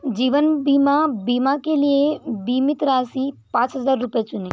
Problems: none marked